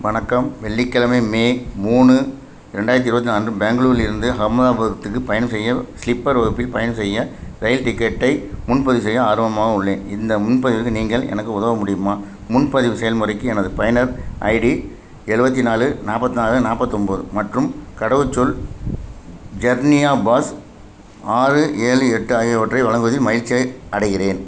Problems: constant background noise